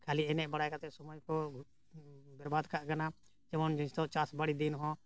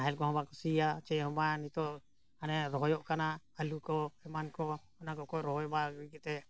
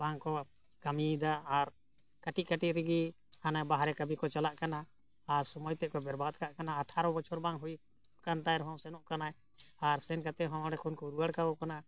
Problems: none marked